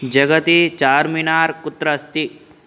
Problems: constant background noise